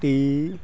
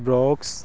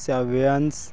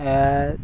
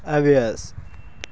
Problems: none marked